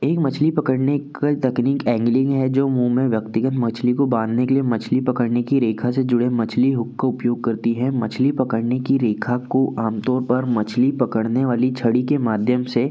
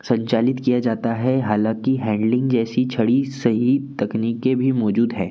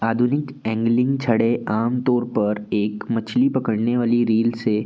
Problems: none marked